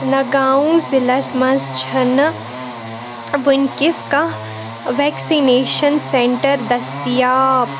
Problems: constant background noise